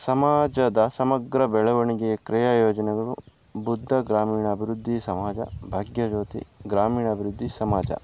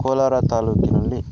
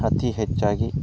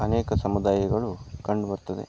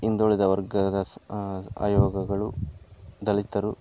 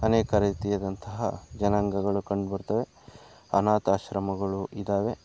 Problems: background sounds at intervals